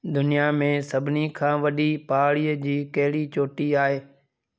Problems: none marked